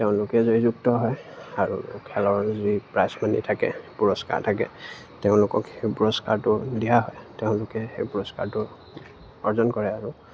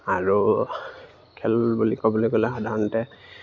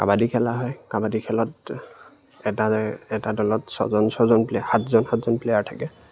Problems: background sounds at intervals